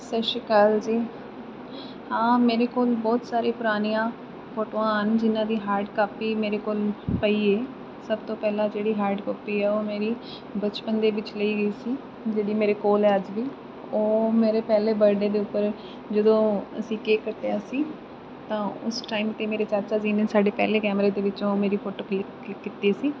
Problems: constant background noise